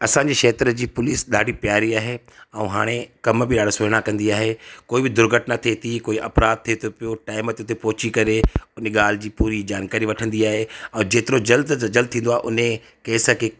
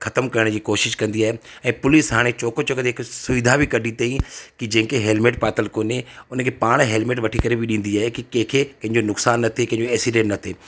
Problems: none marked